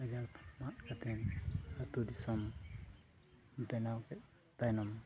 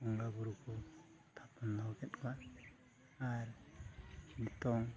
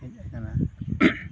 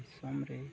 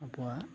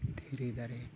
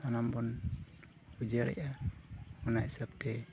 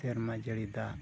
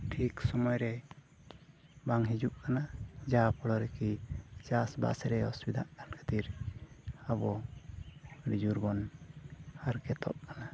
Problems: constant background noise, low volume